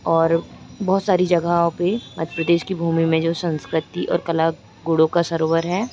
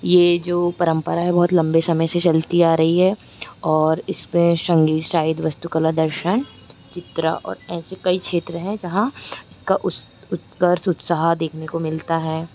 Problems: constant background noise